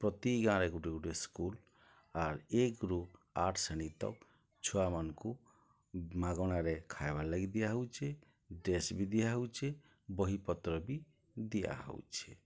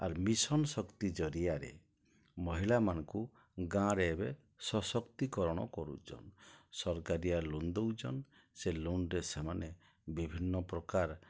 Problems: low volume